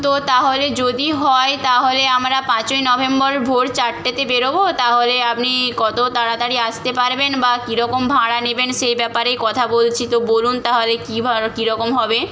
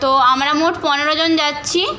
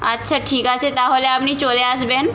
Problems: background conversations at intervals